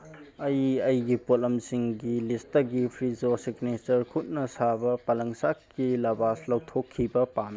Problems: background sounds at intervals